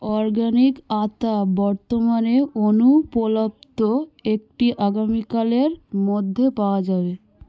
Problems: background sounds at intervals